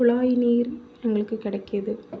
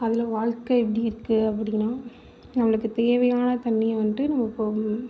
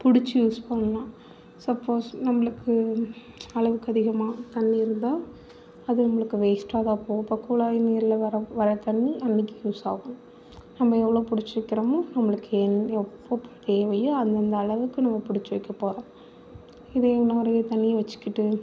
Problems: background sounds at intervals